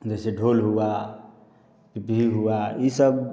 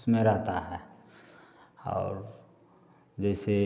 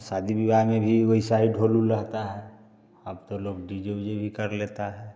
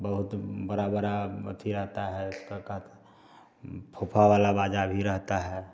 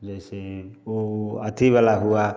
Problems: constant background noise